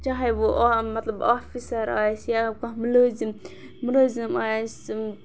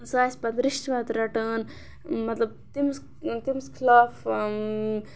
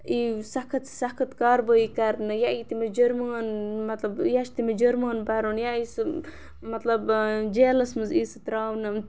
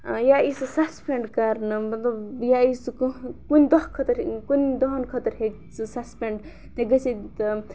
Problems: background sounds at intervals